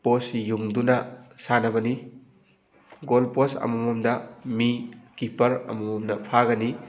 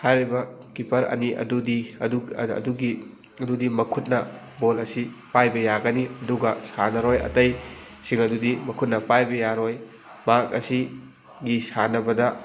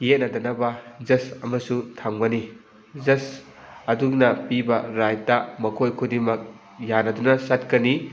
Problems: background sounds at intervals, background conversations at intervals